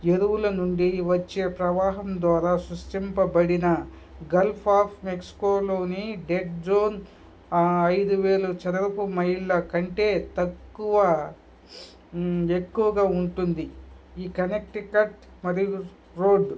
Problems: background sounds at intervals, background conversations at intervals